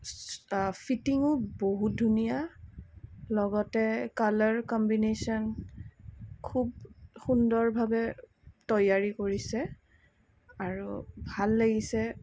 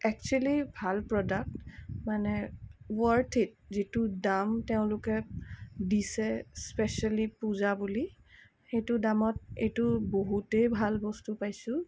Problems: background sounds at intervals